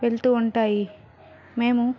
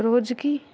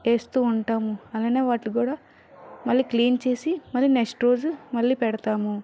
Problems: background conversations at intervals